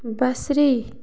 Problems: background sounds at intervals